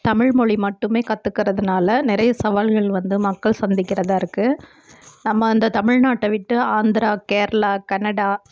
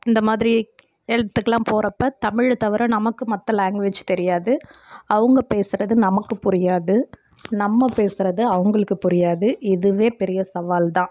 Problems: none marked